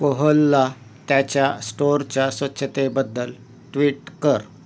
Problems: constant background noise